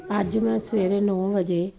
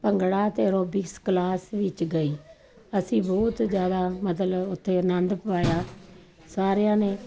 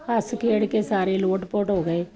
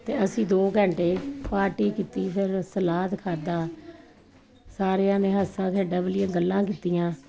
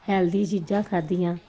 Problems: none marked